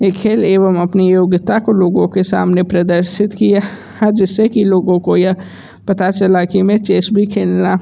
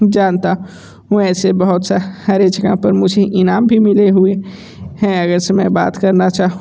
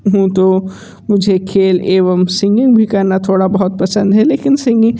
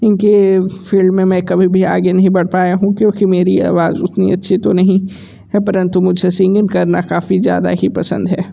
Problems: background conversations at intervals